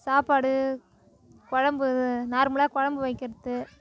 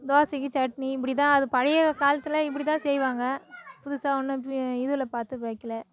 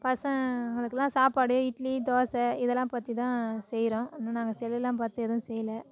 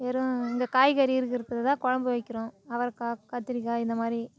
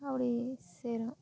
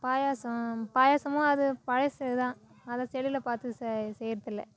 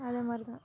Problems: continuous background conversations